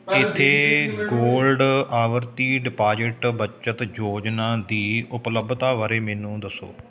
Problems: continuous background conversations